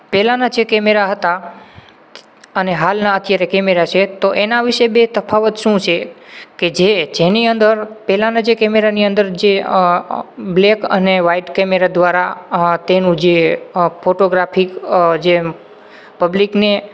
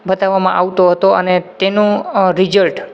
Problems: background sounds at intervals